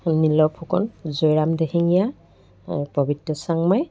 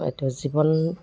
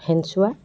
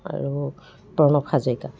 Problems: none marked